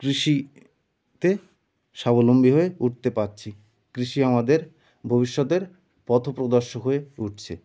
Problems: background sounds at intervals